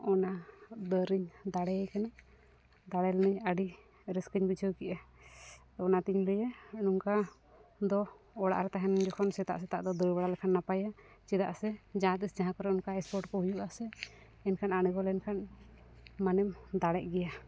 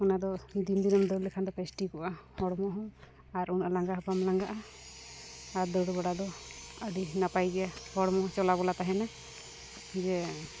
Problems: background sounds at intervals, low volume